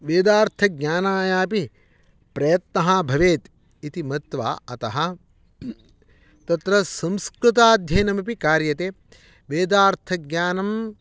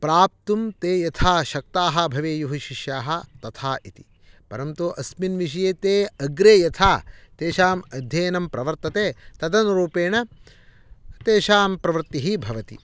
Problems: none marked